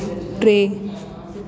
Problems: constant background noise, echo